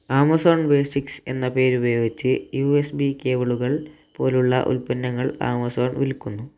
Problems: low volume